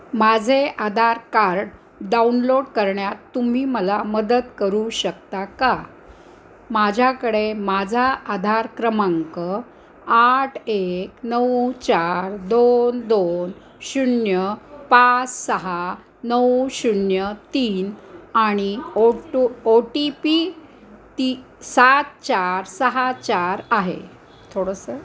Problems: background sounds at intervals, background conversations at intervals